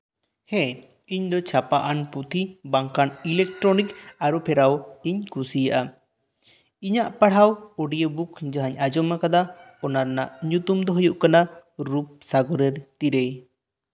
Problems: none marked